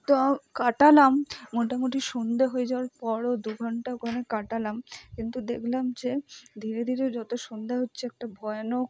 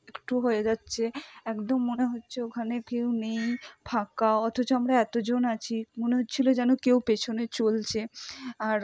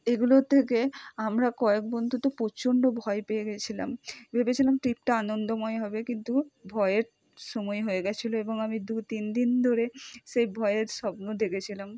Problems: none marked